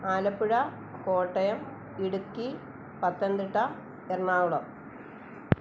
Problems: constant background noise